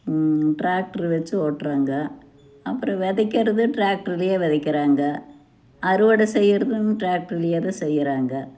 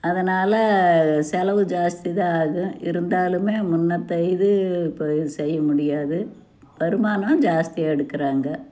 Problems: none marked